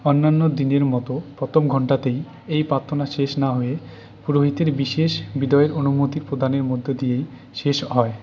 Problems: none marked